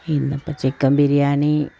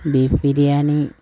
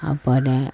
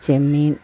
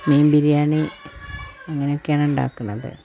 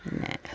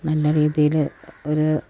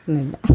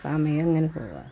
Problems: constant background noise